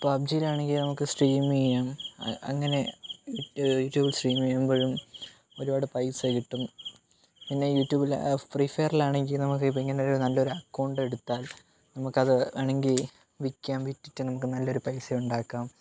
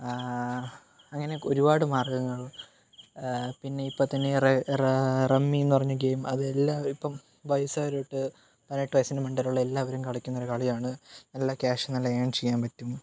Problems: background sounds at intervals